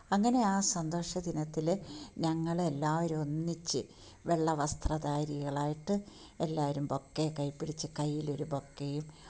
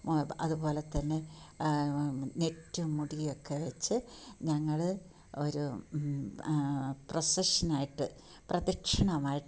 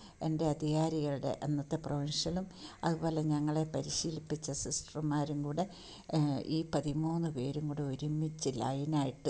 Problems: background sounds at intervals